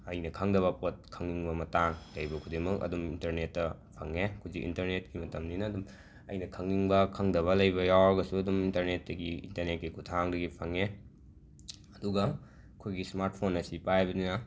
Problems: background sounds at intervals